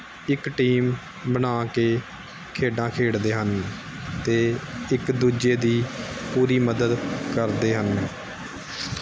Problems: background sounds at intervals